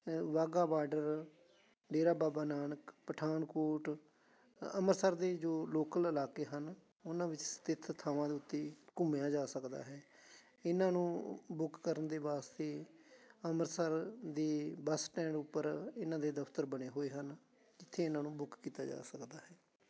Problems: continuous background conversations